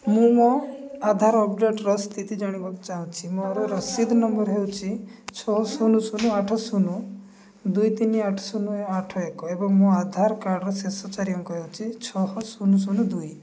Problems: background conversations at intervals